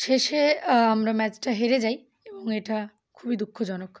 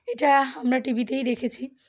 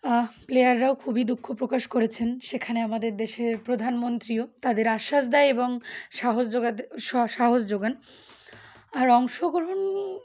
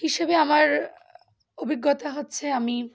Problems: background sounds at intervals